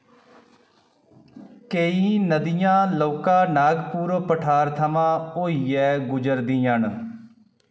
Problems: echo